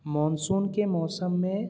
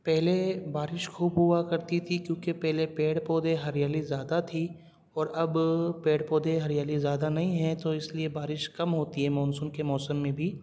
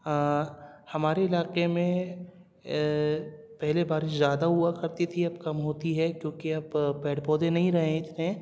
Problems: none marked